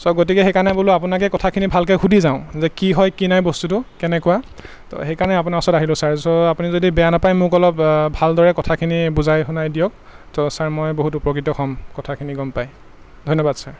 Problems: constant background noise